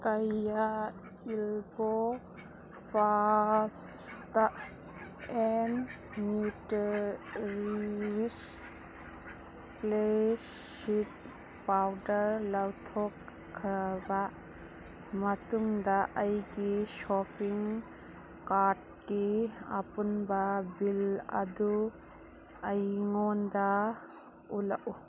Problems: background sounds at intervals, background conversations at intervals